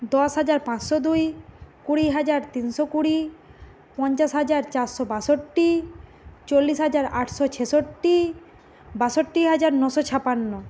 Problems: constant background noise